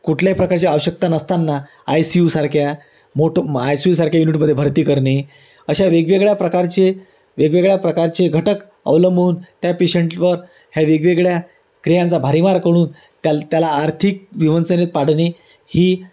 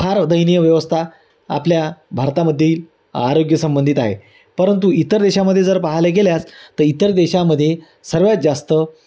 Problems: none marked